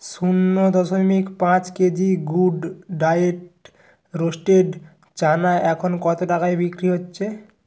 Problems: constant background noise